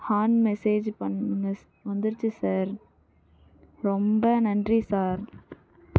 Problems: low volume